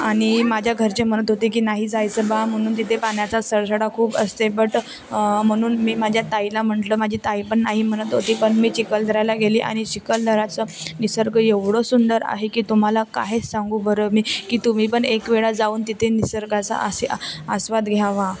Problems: constant background noise, continuous background conversations